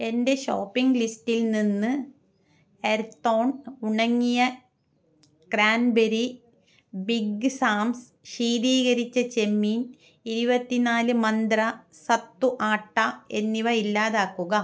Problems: none marked